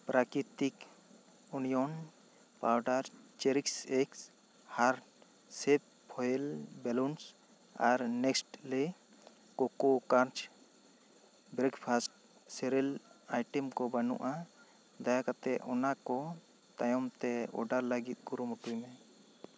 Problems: constant background noise